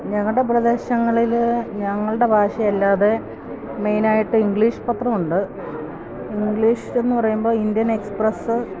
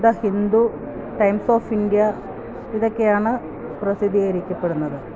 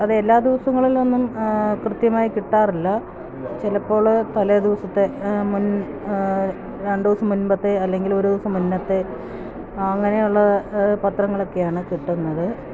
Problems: constant background noise